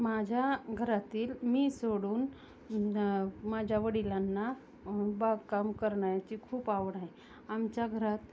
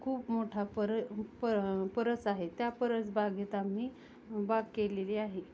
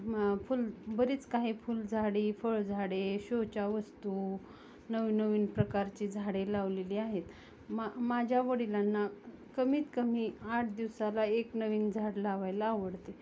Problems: none marked